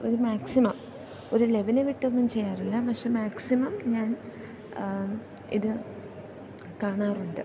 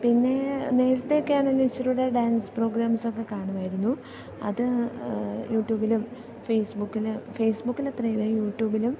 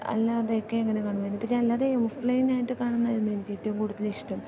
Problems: constant background noise, low volume